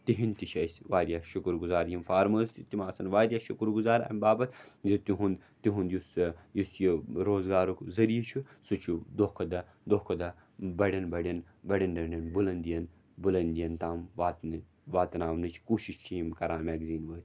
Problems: none marked